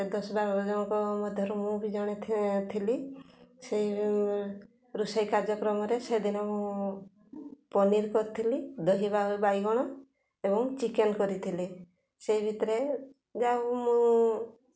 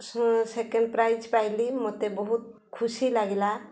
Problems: constant background noise, continuous background conversations